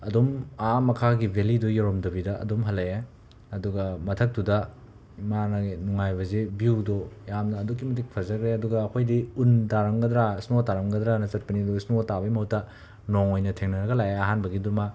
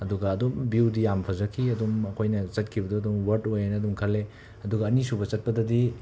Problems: background sounds at intervals